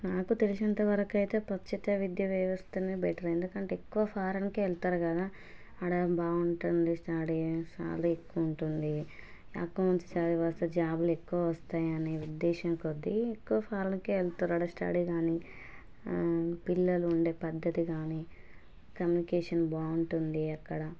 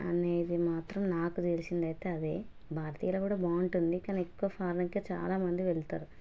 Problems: none marked